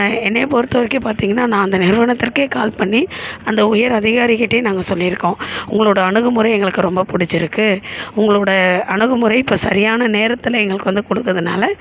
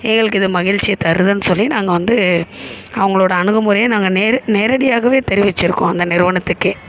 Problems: constant background noise